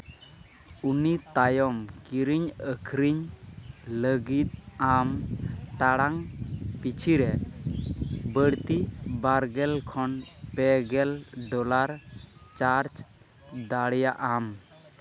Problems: constant background noise, continuous background conversations